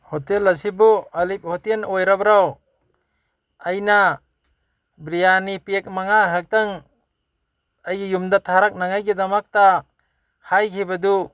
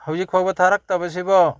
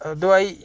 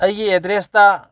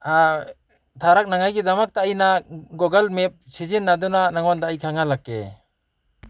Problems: background sounds at intervals, background conversations at intervals